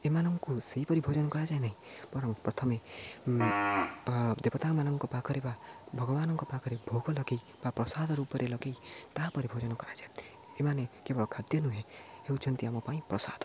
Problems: low volume